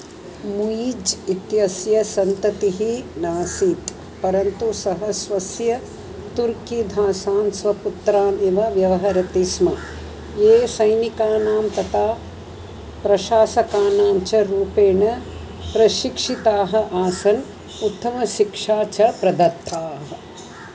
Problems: none marked